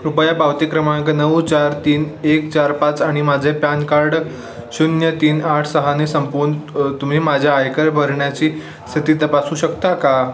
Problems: constant background noise